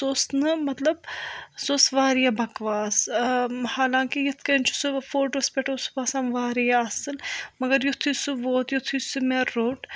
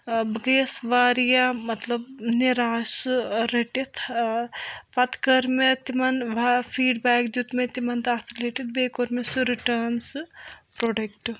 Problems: none marked